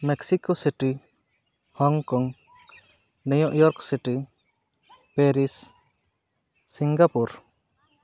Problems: background sounds at intervals